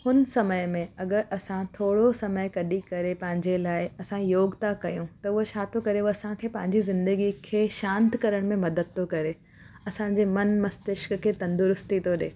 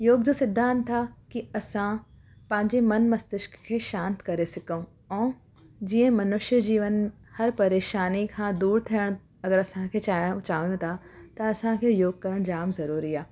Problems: constant background noise